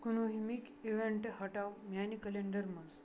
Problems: constant background noise